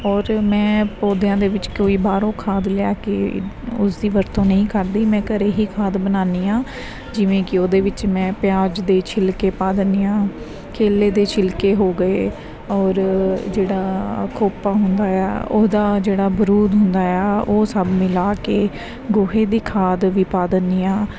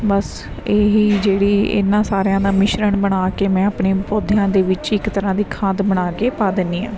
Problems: background sounds at intervals